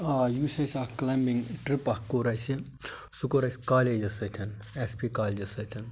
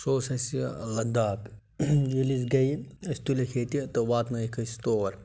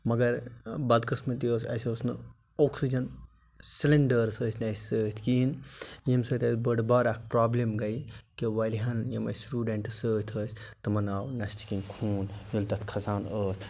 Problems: none marked